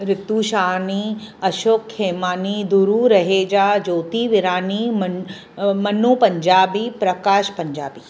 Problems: constant background noise, background conversations at intervals